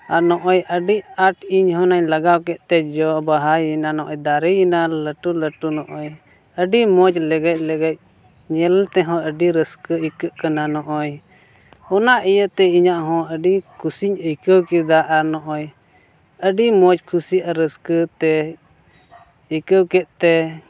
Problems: none marked